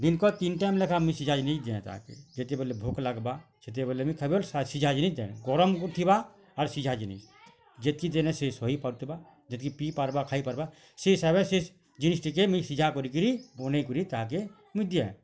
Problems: none marked